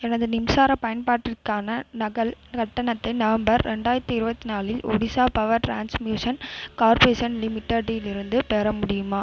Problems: constant background noise